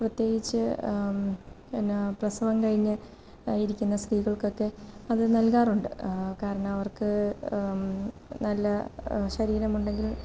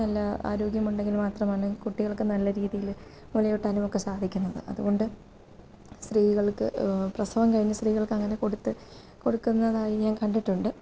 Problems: low volume